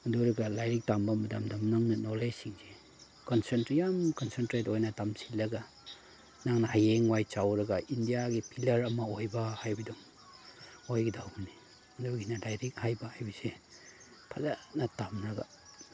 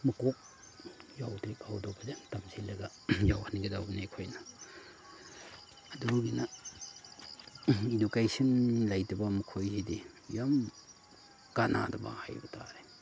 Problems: background sounds at intervals